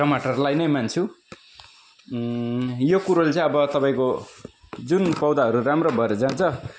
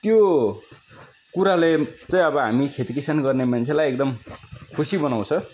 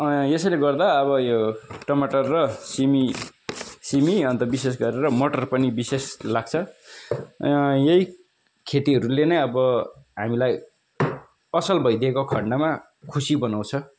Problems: constant background noise, continuous background conversations